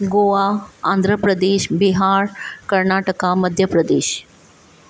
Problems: none marked